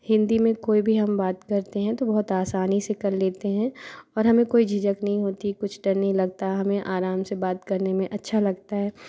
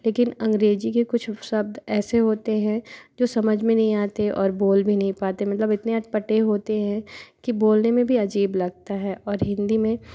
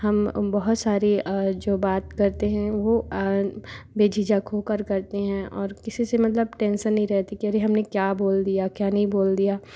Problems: constant background noise